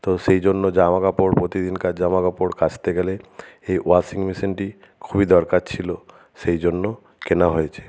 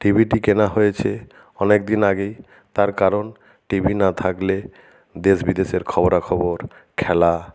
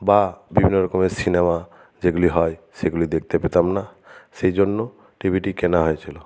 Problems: none marked